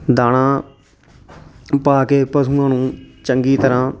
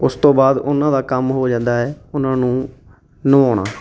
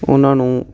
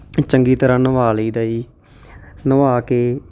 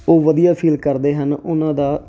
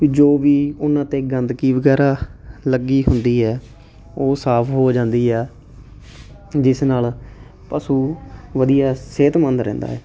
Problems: constant background noise